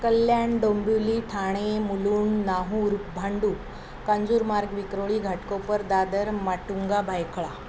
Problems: none marked